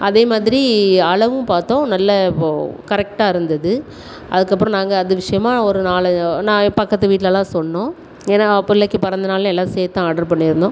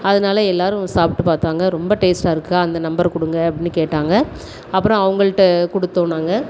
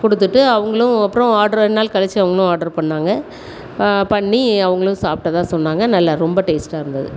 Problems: none marked